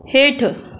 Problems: constant background noise, echo